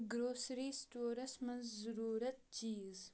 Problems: none marked